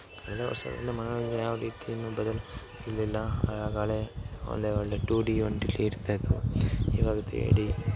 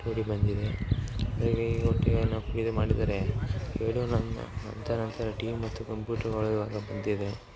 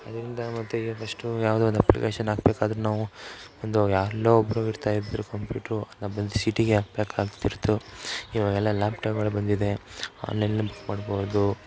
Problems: none marked